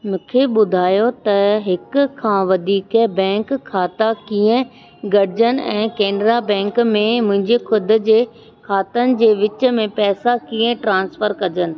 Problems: constant background noise